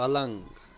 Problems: background sounds at intervals